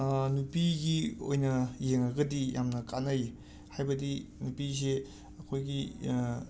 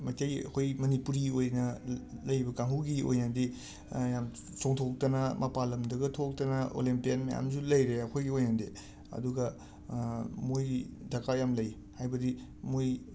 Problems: constant background noise, background conversations at intervals